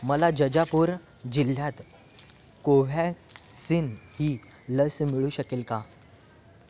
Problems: constant background noise, continuous background conversations